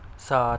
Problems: constant background noise